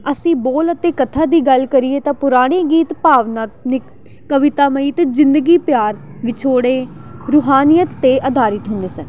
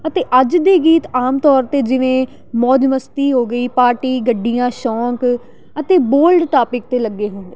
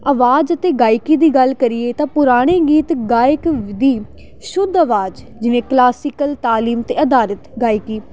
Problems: none marked